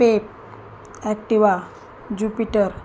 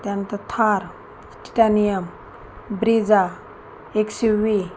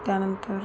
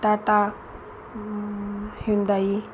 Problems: constant background noise, continuous background conversations